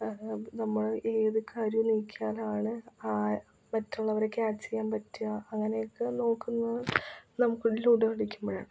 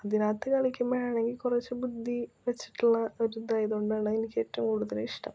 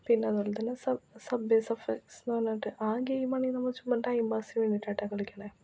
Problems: low volume